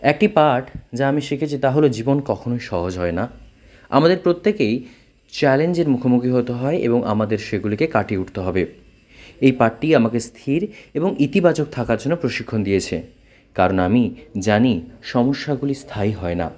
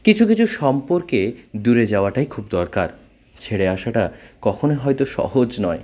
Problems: background conversations at intervals